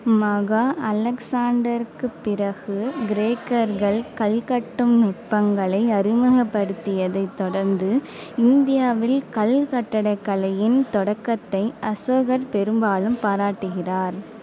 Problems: background conversations at intervals